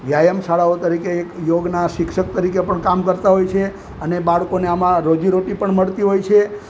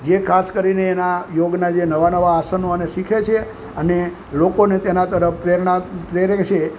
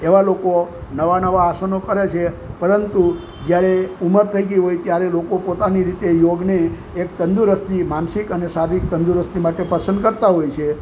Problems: constant background noise